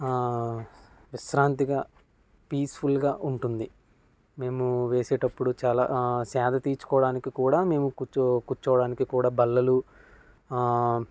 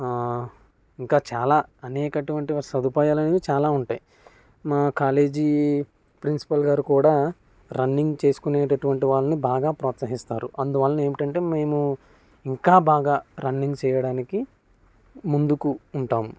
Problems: none marked